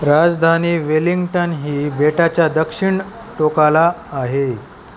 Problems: constant background noise